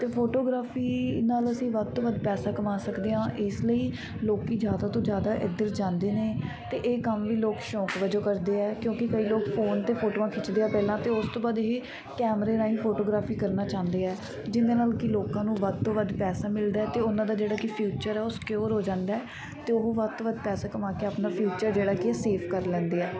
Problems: constant background noise